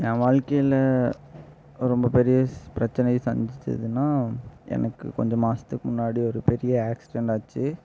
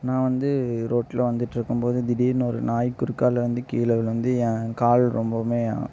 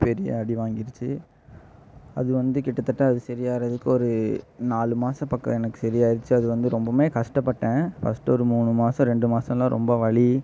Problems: none marked